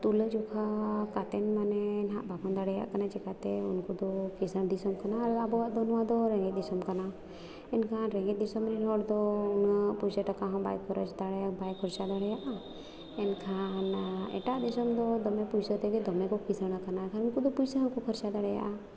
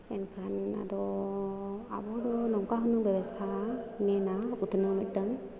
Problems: none marked